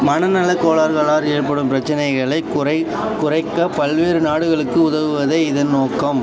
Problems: constant background noise, continuous background conversations